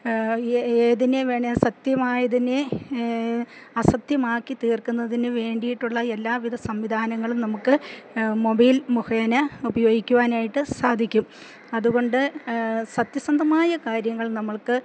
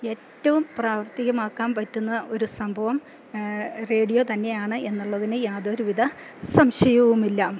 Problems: none marked